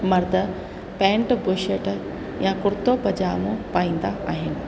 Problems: constant background noise, echo